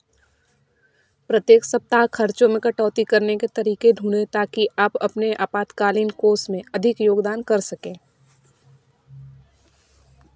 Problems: background sounds at intervals